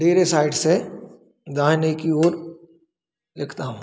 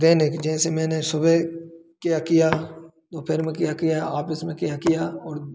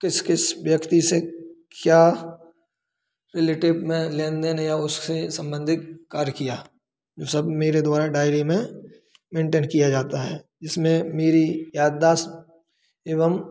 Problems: none marked